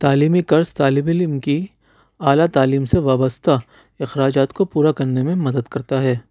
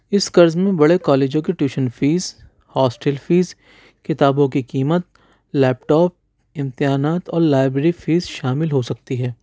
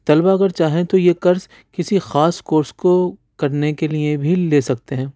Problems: none marked